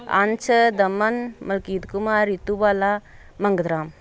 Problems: background sounds at intervals